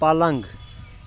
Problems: background sounds at intervals